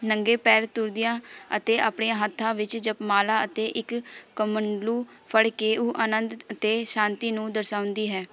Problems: constant background noise, background conversations at intervals